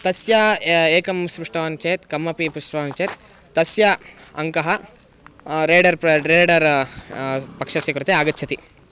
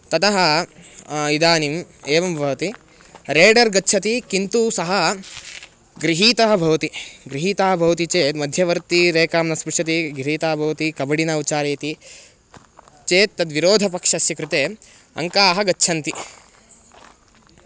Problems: background sounds at intervals